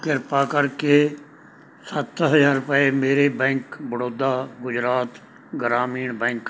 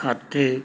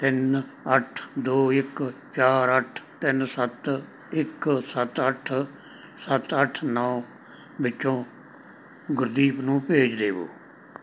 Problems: none marked